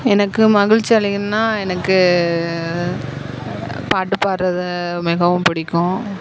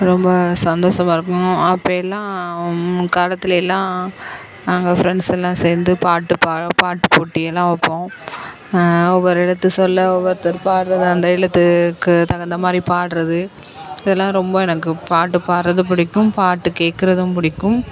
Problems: background sounds at intervals